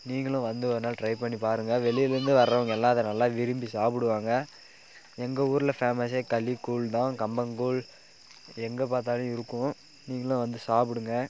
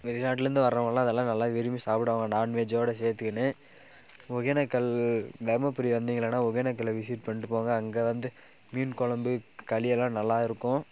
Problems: background conversations at intervals